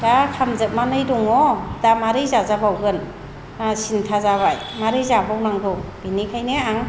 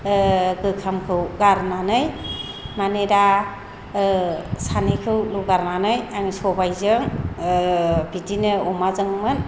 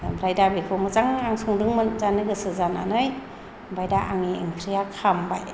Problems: low volume